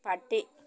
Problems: none marked